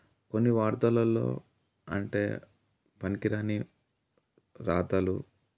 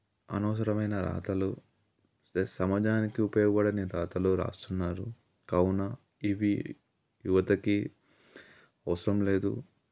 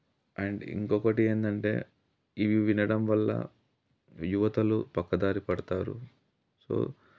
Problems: none marked